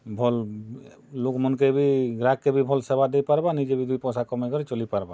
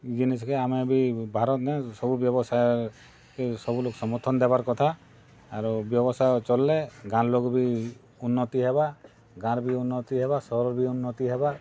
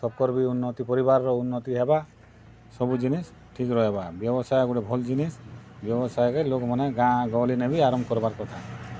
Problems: background sounds at intervals